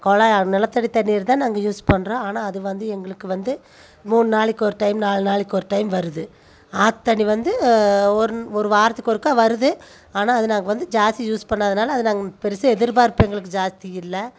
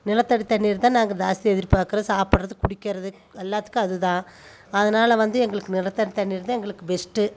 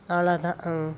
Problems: none marked